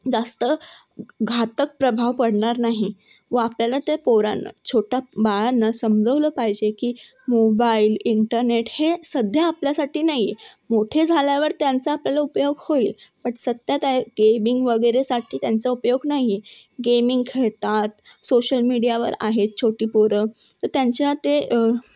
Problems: background sounds at intervals, background conversations at intervals